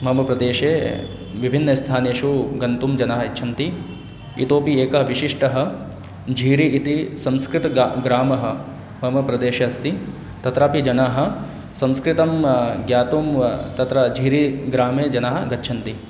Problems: constant background noise